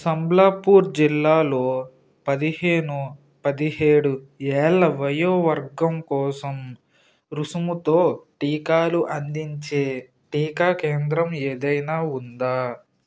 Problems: constant background noise